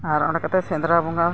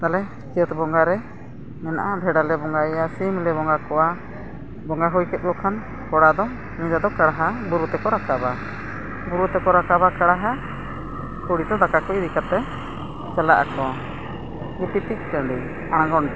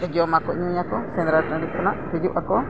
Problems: background sounds at intervals, background conversations at intervals